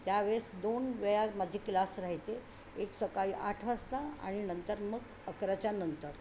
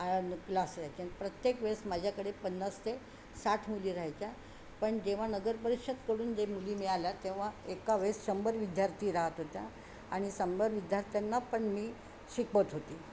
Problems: none marked